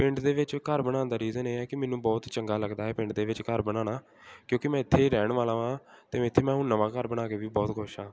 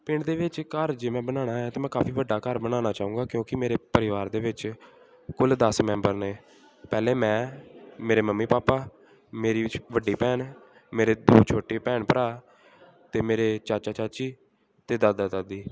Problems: background sounds at intervals, background conversations at intervals